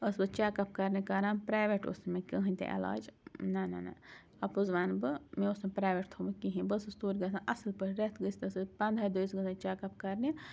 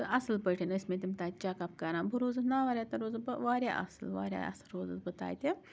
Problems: constant background noise